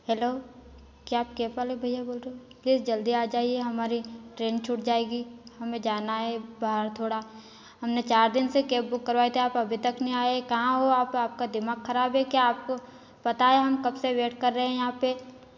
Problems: none marked